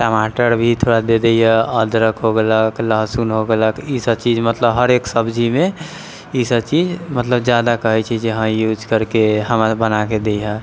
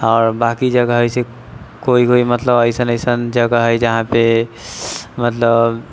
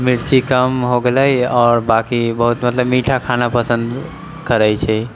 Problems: none marked